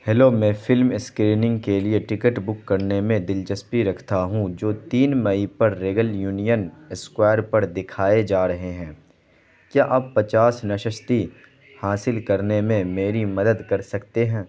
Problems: constant background noise